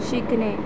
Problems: constant background noise